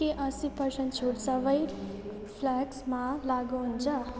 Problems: none marked